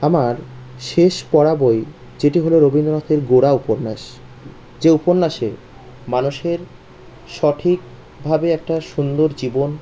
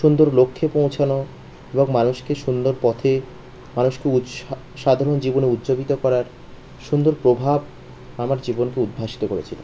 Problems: constant background noise